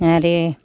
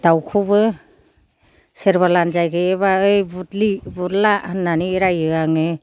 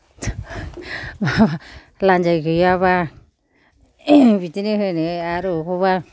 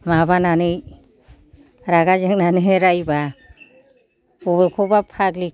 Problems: none marked